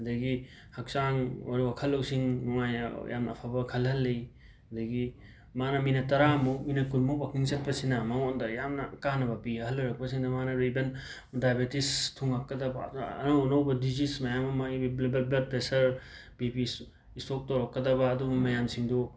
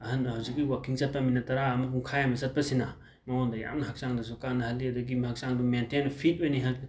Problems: background sounds at intervals